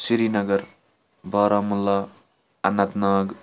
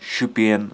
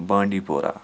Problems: none marked